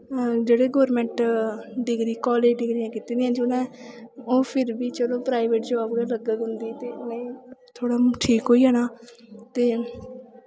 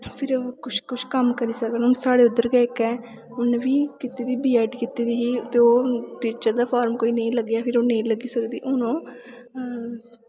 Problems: constant background noise